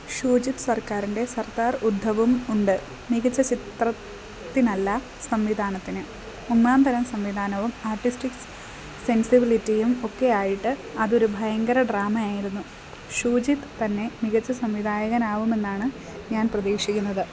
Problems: none marked